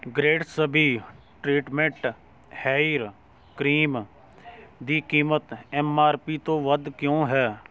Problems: background sounds at intervals, background conversations at intervals